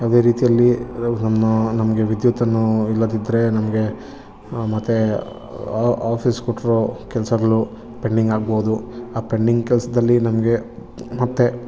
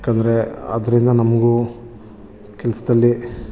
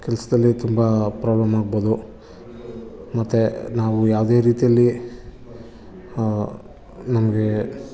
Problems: background sounds at intervals